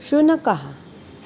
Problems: constant background noise